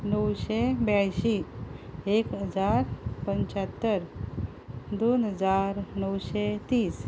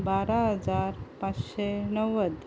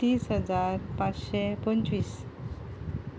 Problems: constant background noise